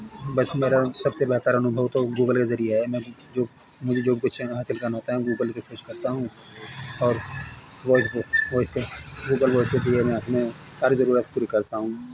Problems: constant background noise